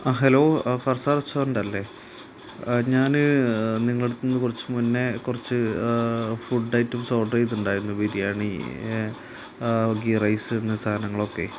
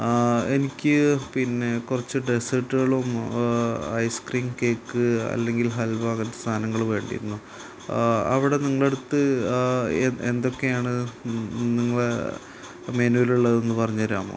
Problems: constant background noise